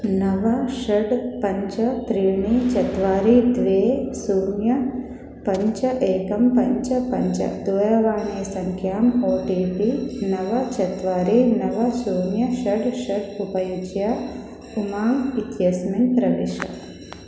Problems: background sounds at intervals